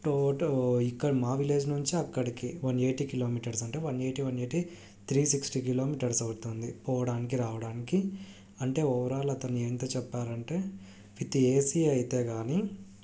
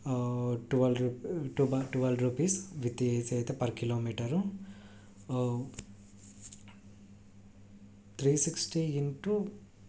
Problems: low volume